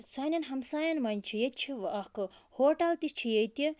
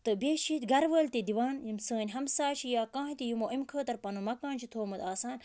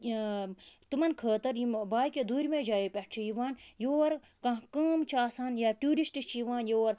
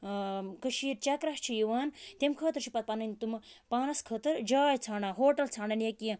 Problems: background sounds at intervals